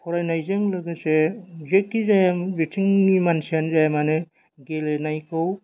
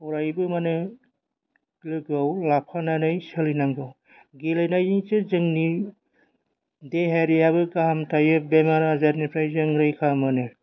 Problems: none marked